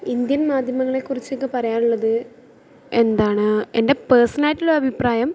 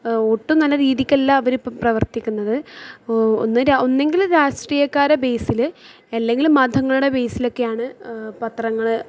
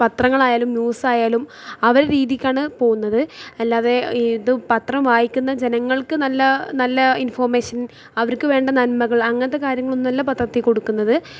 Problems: none marked